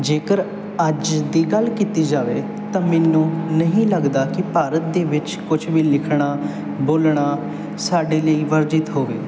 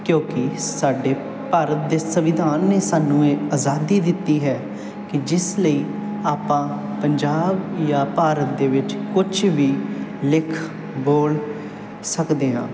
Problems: none marked